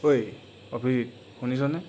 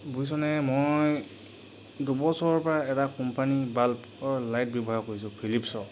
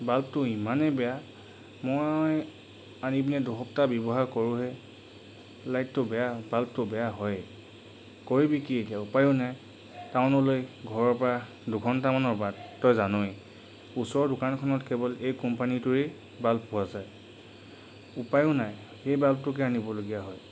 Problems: none marked